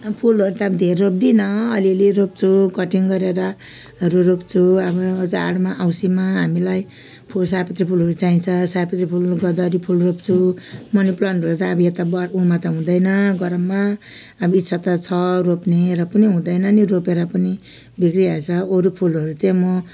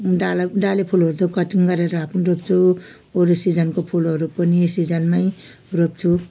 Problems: background sounds at intervals